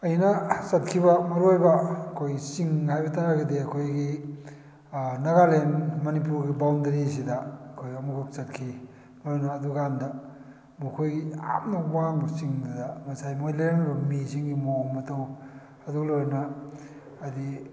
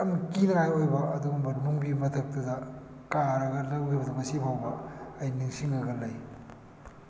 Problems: background sounds at intervals